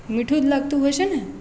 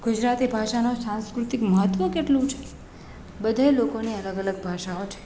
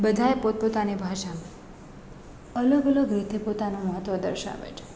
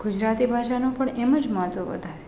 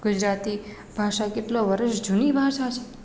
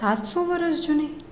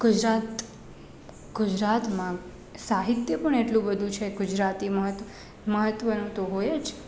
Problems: none marked